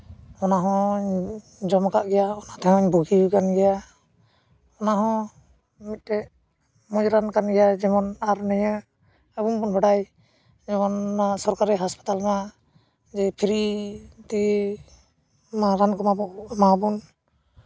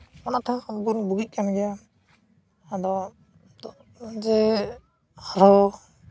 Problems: constant background noise